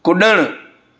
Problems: none marked